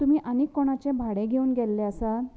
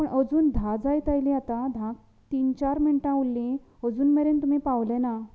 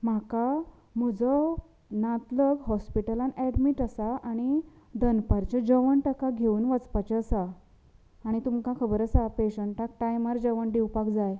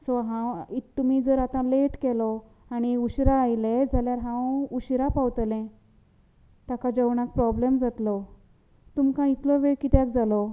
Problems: background conversations at intervals